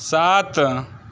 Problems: constant background noise